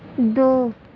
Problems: constant background noise